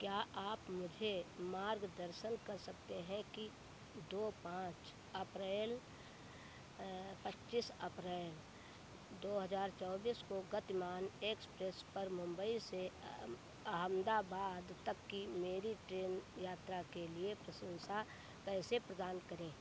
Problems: none marked